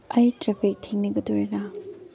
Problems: low volume